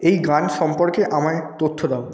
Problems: none marked